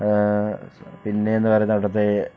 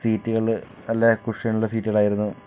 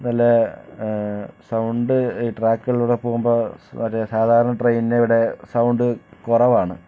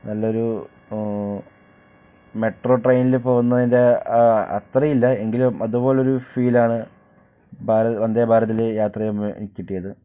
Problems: none marked